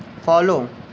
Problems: constant background noise